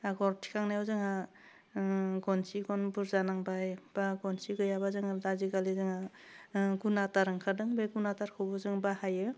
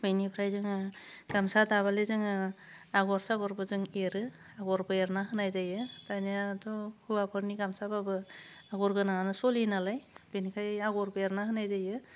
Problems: none marked